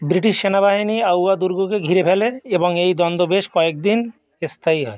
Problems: background sounds at intervals, continuous background conversations